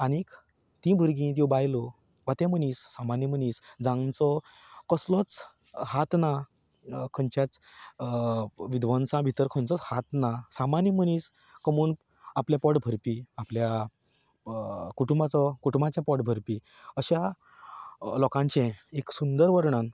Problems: constant background noise